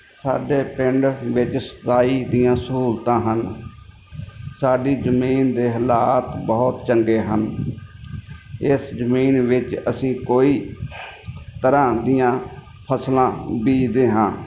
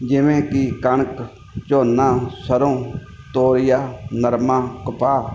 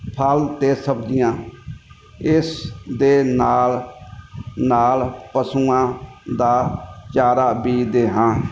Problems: background sounds at intervals